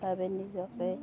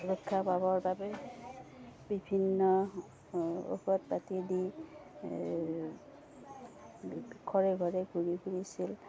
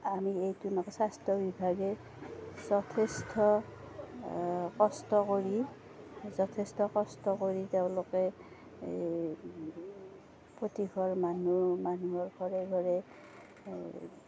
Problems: constant background noise